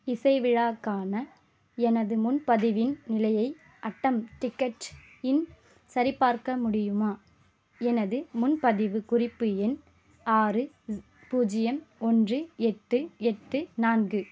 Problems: constant background noise